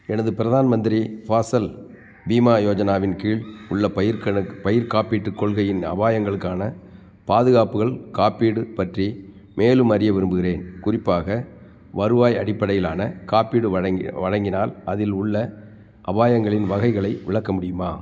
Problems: none marked